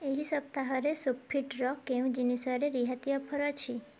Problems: none marked